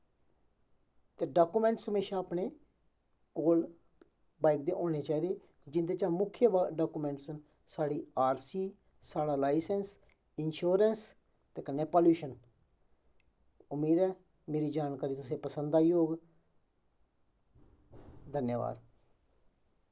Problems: background sounds at intervals, echo